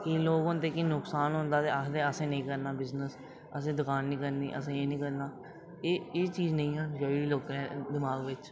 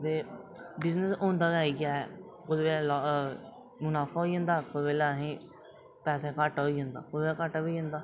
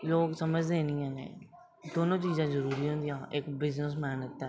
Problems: none marked